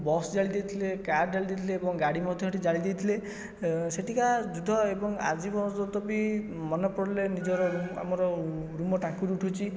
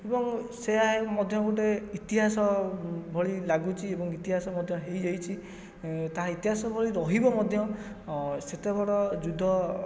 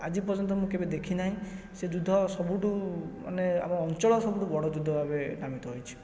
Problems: background sounds at intervals, low volume